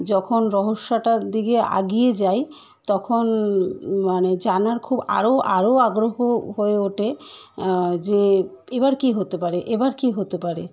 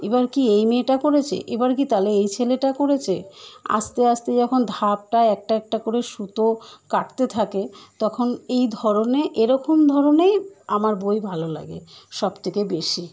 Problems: constant background noise